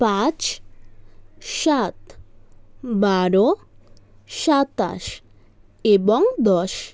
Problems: none marked